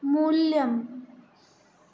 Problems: none marked